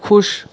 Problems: background sounds at intervals